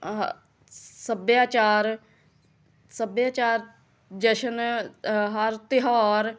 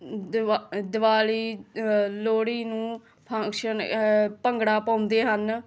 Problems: continuous background conversations